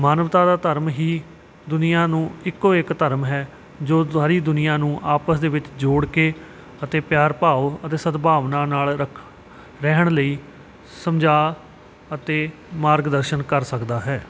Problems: none marked